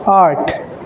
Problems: constant background noise